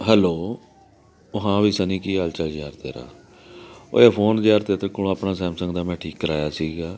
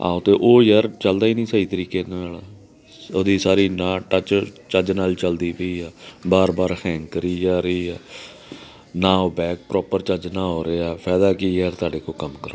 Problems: continuous background conversations